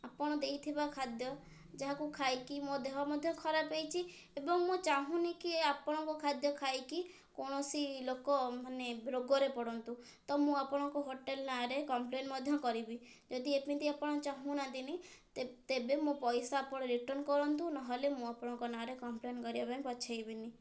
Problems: low volume